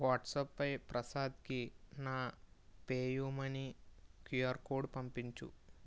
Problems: low volume